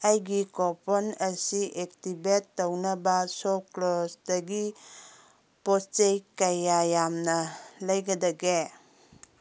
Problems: none marked